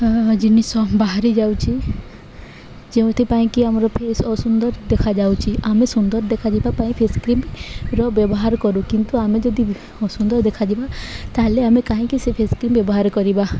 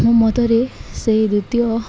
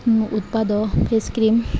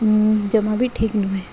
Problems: constant background noise